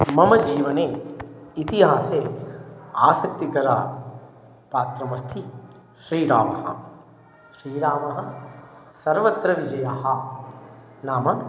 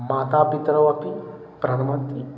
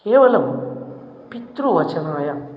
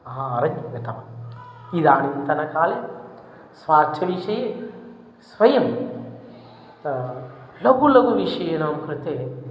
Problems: constant background noise, background conversations at intervals